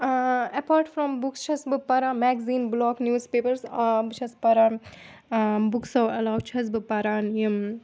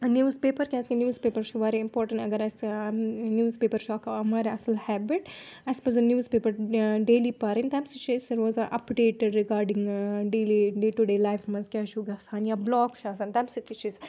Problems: none marked